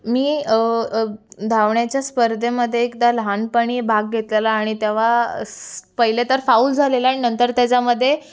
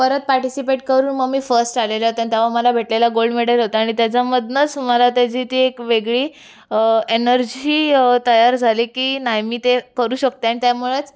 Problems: constant background noise, continuous background conversations